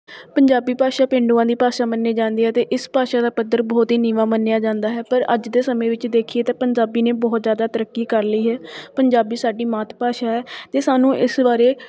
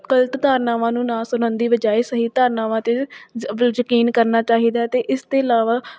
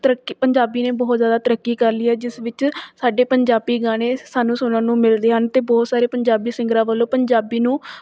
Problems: none marked